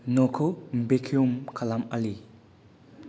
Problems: low volume